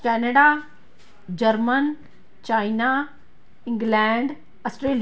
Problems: background sounds at intervals